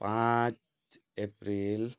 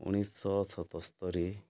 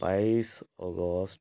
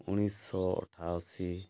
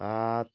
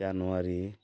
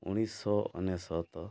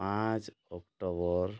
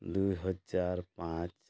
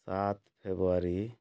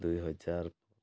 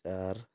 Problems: none marked